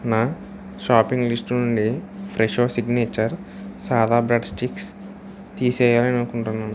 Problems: constant background noise